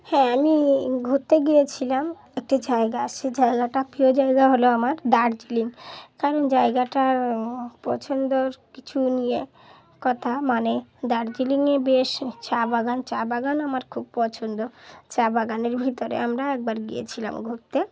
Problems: background sounds at intervals